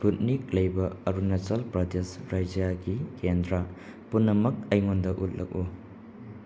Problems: none marked